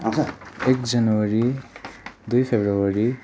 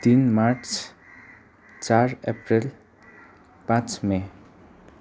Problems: constant background noise, background conversations at intervals